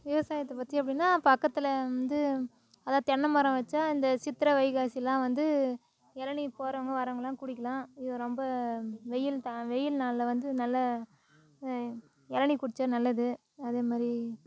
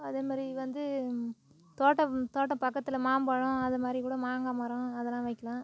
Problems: none marked